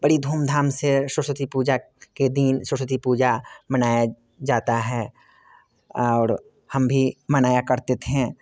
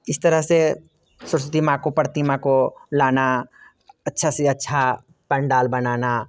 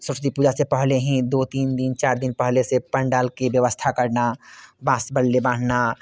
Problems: constant background noise